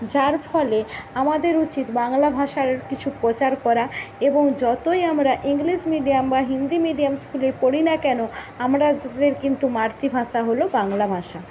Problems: constant background noise